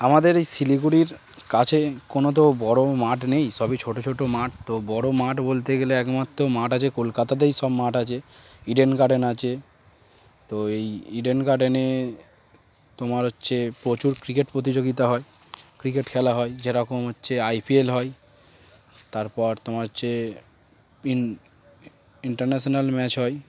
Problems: constant background noise